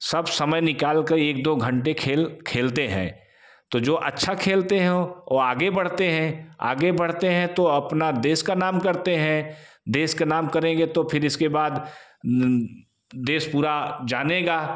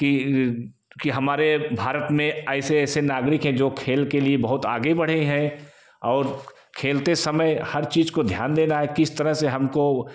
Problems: echo